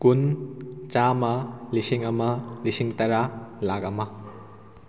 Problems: background sounds at intervals